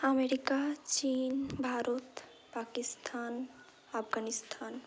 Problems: constant background noise, background conversations at intervals